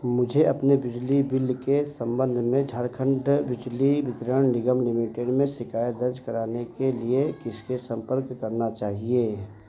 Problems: none marked